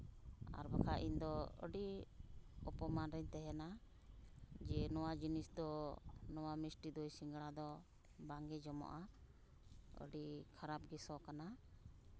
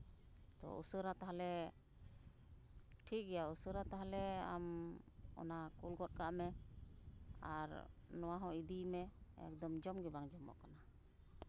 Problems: background sounds at intervals